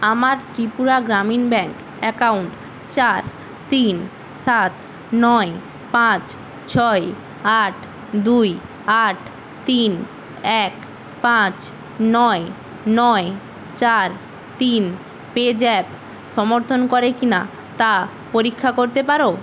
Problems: constant background noise